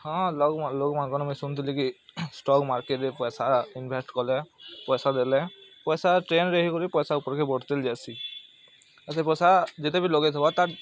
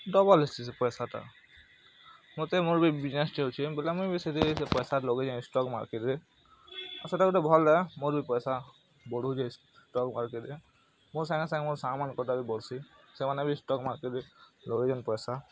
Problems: background sounds at intervals, background conversations at intervals